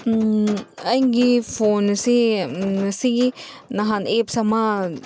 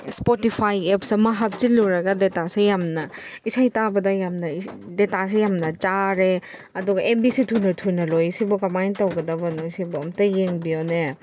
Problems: background sounds at intervals